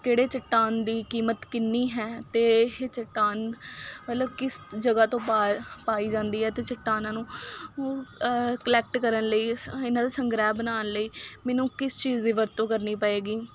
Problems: none marked